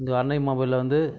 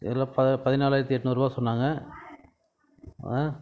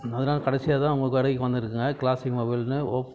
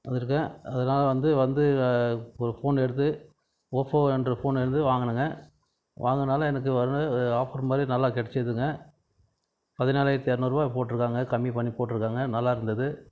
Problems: none marked